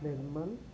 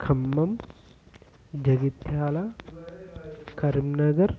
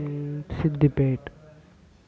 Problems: constant background noise, continuous background conversations